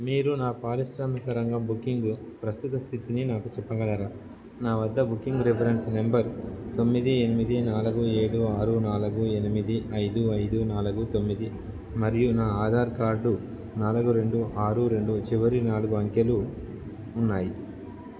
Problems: none marked